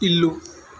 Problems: constant background noise